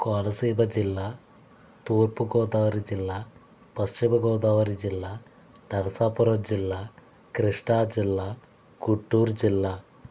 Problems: constant background noise